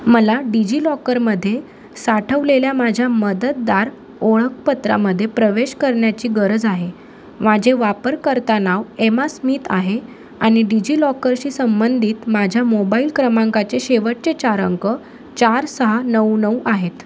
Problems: constant background noise